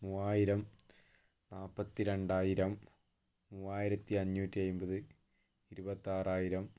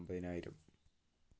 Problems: low volume